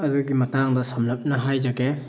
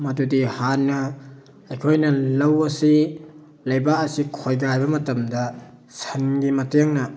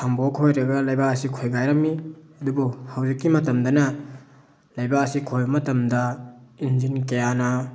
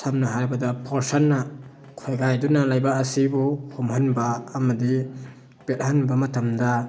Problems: background sounds at intervals, background conversations at intervals